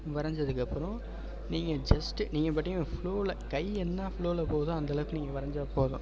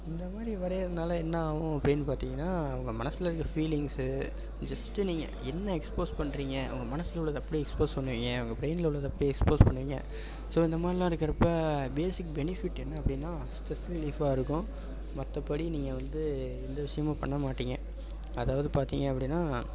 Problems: constant background noise